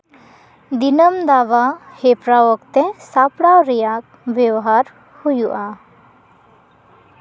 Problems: none marked